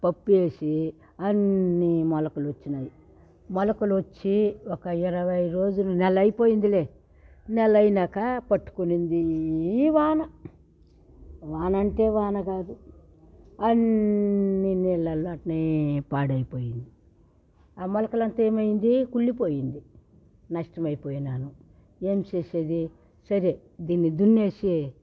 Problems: background sounds at intervals